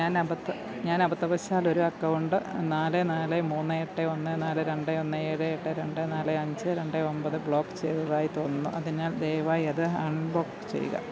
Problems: low volume